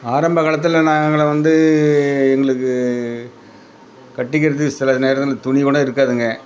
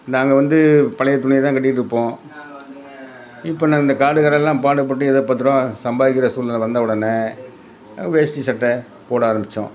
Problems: constant background noise